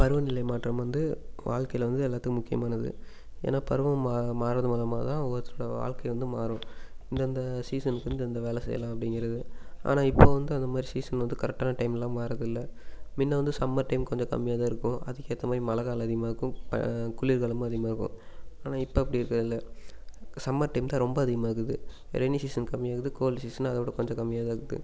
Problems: constant background noise